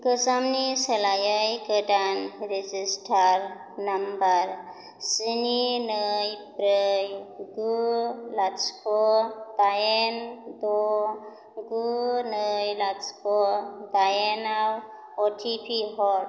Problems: none marked